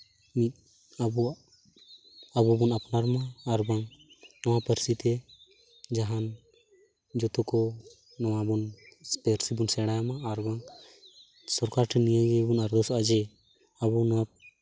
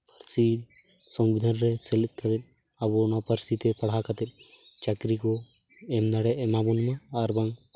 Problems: constant background noise